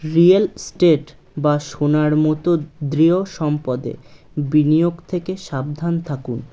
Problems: none marked